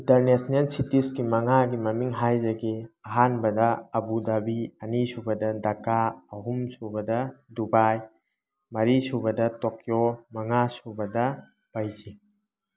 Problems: background sounds at intervals